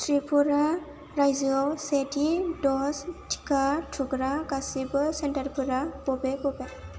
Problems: none marked